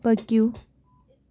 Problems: background sounds at intervals